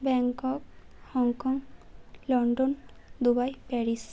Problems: constant background noise